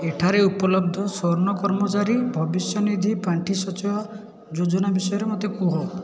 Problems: continuous background conversations